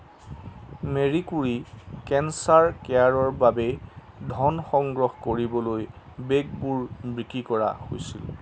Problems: none marked